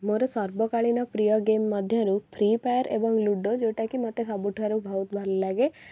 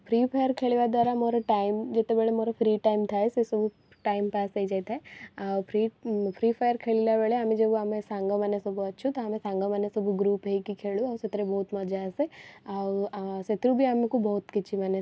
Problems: none marked